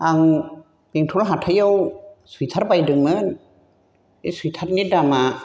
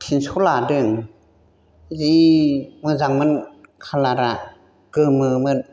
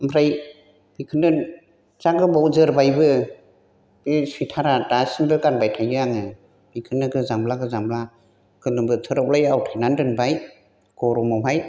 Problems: none marked